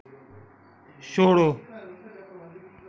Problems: background sounds at intervals, echo